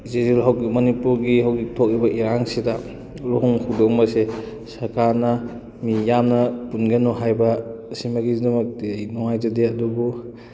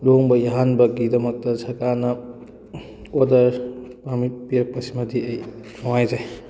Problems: background conversations at intervals